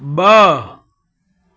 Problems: constant background noise, echo